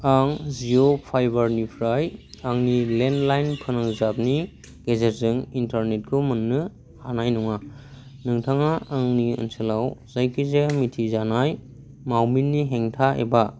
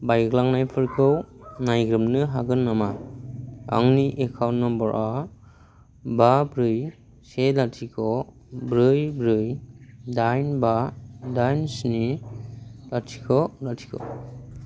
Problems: constant background noise